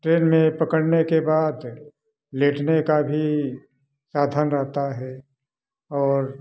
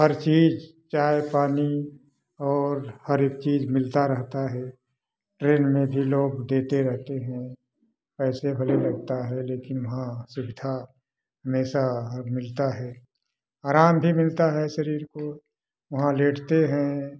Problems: background sounds at intervals